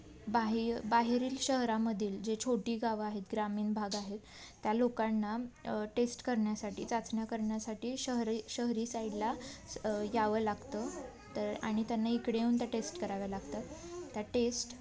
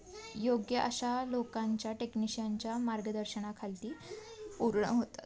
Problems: constant background noise, continuous background conversations